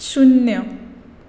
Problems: constant background noise